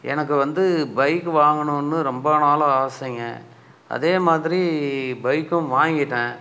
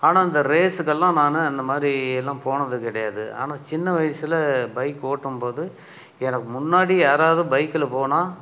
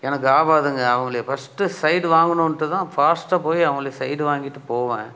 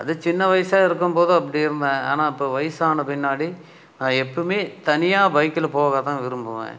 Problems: none marked